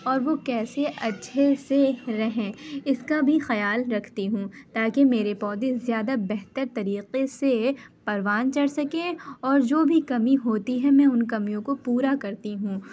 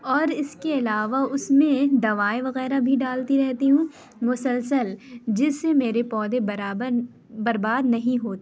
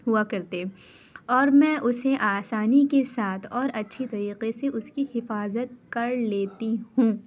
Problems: constant background noise